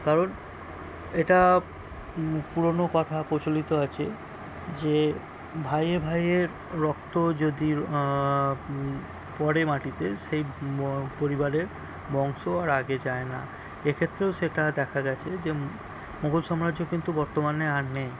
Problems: background sounds at intervals